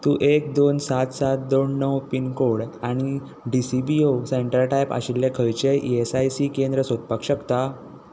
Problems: constant background noise